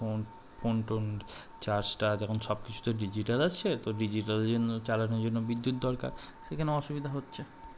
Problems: constant background noise